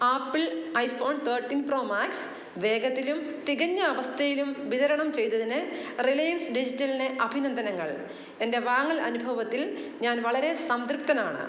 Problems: none marked